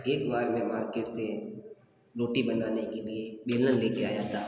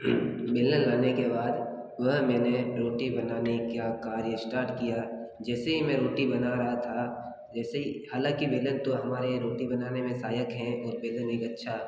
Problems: background sounds at intervals